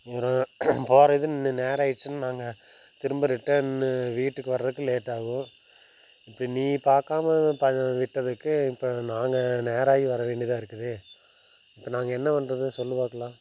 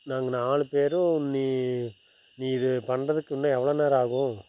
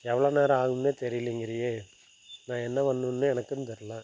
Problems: none marked